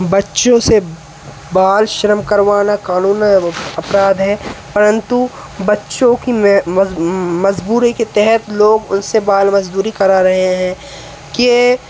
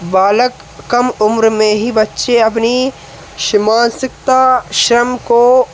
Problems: constant background noise